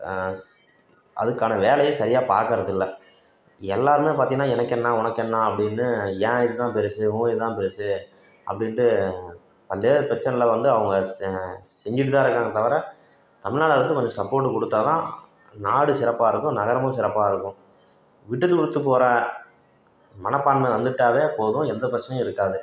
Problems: constant background noise